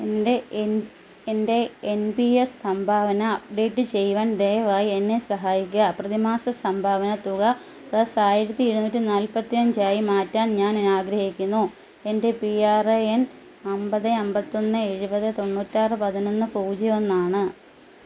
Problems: constant background noise